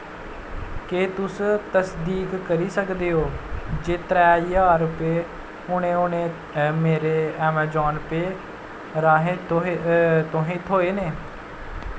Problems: constant background noise